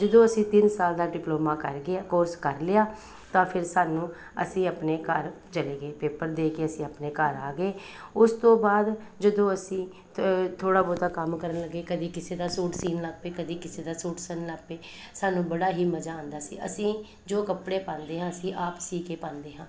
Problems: background conversations at intervals